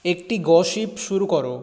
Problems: none marked